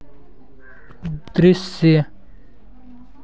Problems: background sounds at intervals